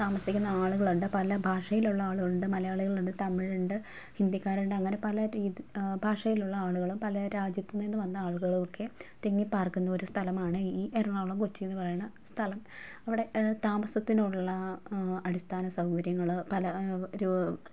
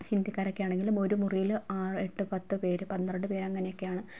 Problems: low volume